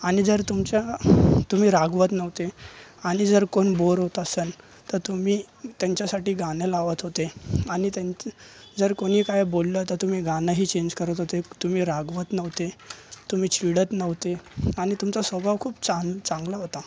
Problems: constant background noise, continuous background conversations